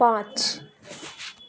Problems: constant background noise, background conversations at intervals